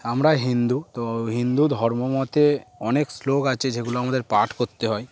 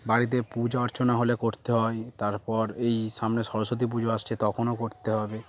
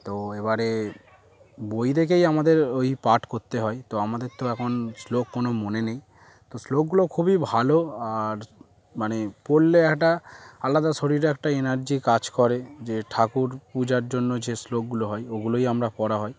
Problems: background sounds at intervals